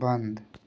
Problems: none marked